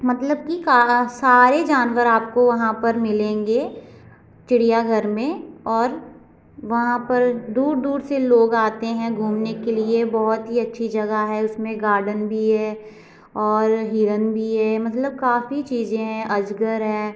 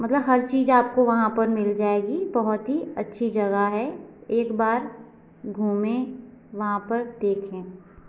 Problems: constant background noise